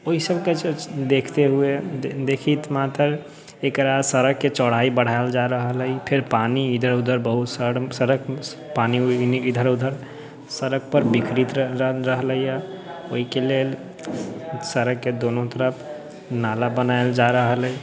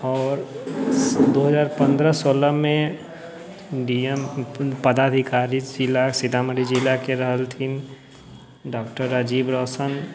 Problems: none marked